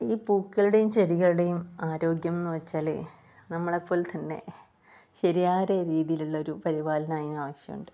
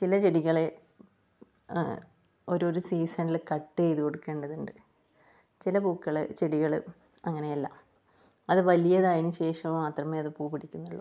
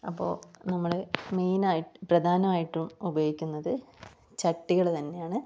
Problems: low volume